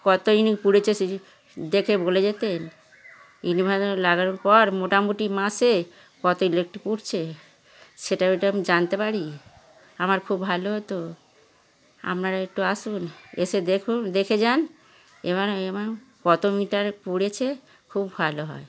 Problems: background conversations at intervals